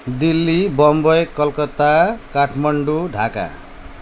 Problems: none marked